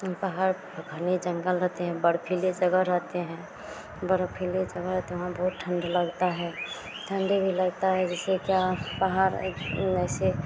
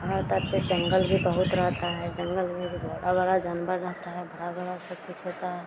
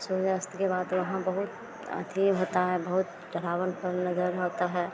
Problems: none marked